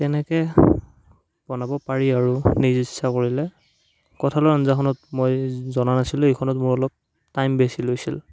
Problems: background sounds at intervals